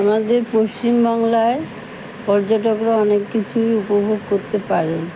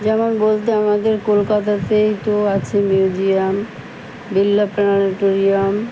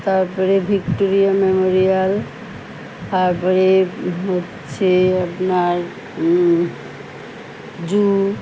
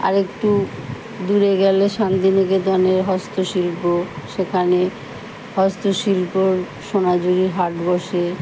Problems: constant background noise